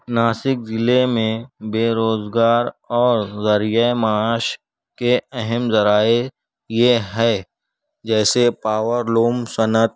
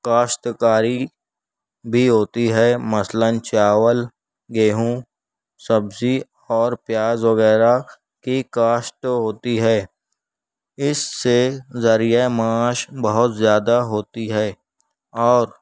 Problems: none marked